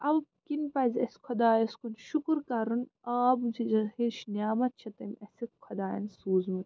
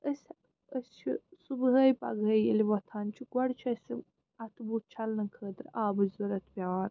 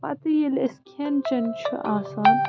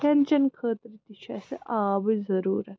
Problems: constant background noise